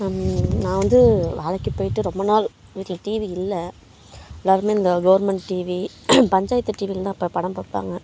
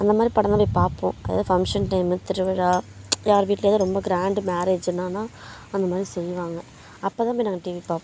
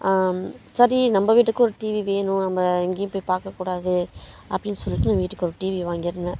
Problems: none marked